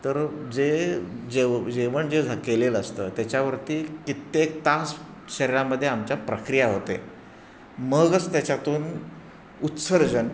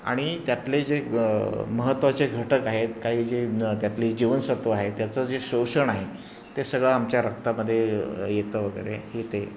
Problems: constant background noise, background conversations at intervals